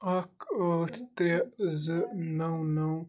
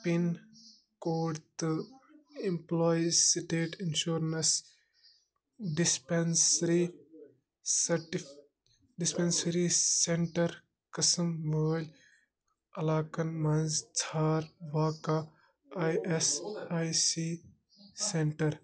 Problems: constant background noise